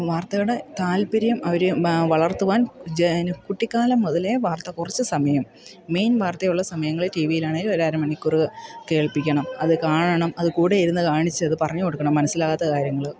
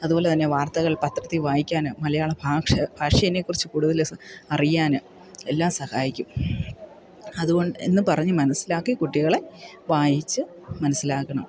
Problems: background sounds at intervals